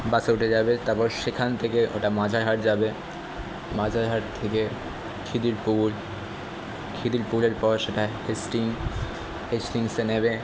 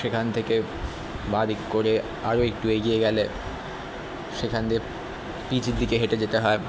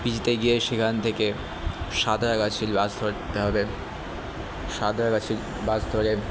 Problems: constant background noise